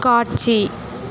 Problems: constant background noise, continuous background conversations